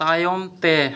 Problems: echo